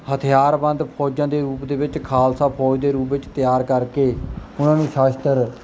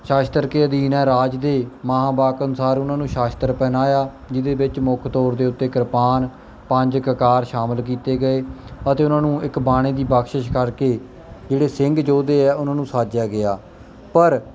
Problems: background sounds at intervals